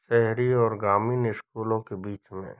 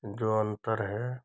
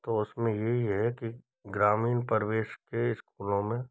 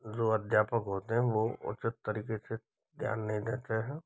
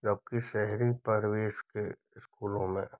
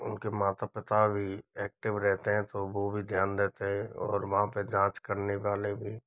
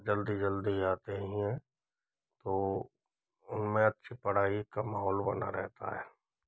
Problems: background sounds at intervals